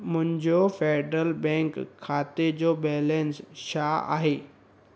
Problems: constant background noise